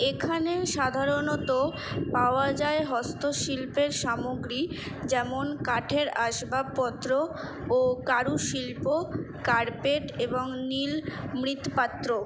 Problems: constant background noise